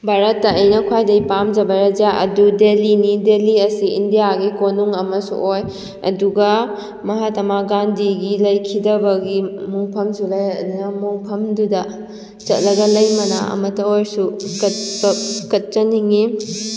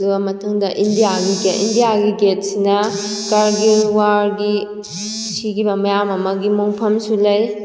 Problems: constant background noise